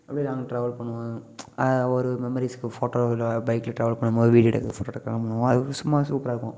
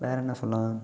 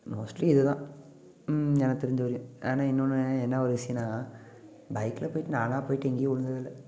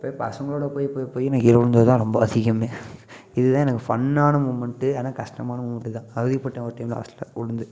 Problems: continuous background conversations